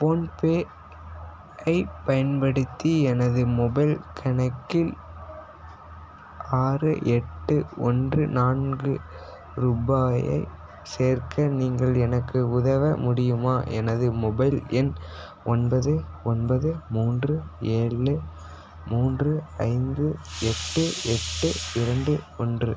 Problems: constant background noise